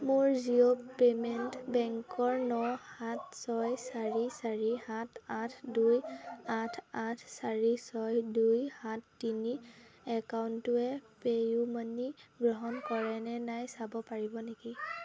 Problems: continuous background conversations